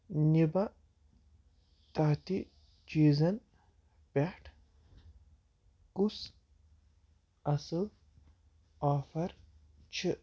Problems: none marked